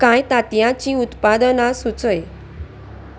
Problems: constant background noise